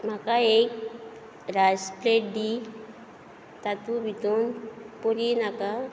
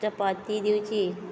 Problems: background conversations at intervals